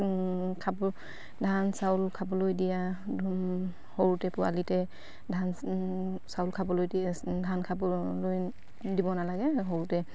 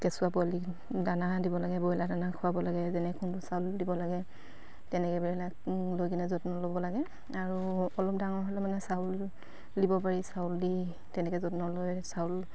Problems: constant background noise